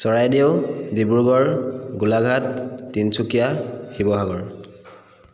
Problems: background sounds at intervals